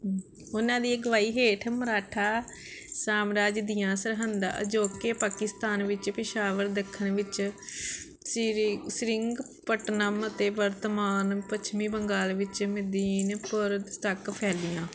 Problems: constant background noise